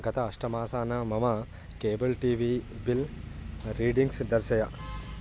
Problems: constant background noise